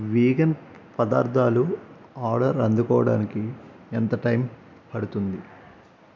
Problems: constant background noise